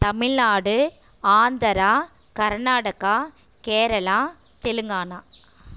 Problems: none marked